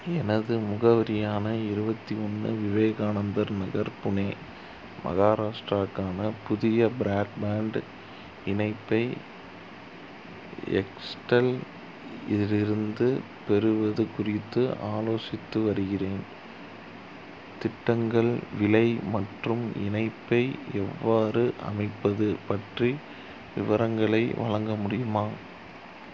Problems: constant background noise